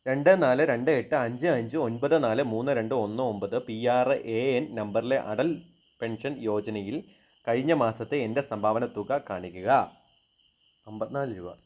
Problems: none marked